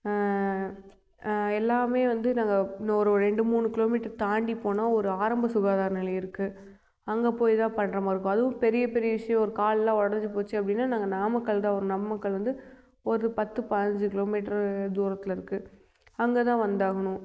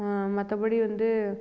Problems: none marked